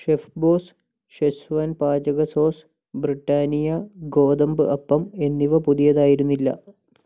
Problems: low volume